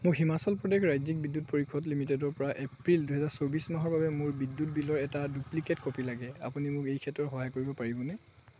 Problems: none marked